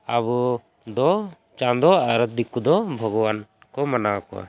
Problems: constant background noise